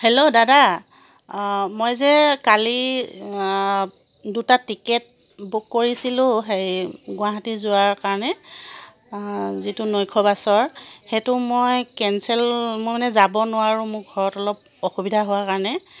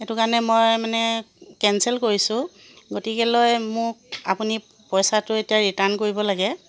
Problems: constant background noise